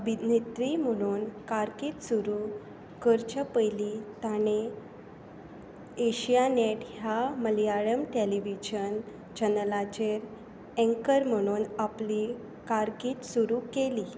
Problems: constant background noise, low volume